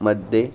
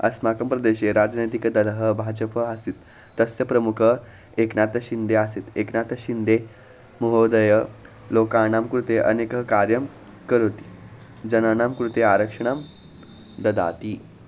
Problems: constant background noise